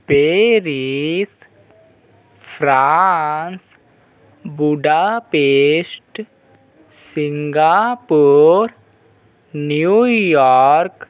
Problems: constant background noise